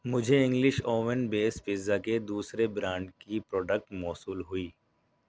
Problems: none marked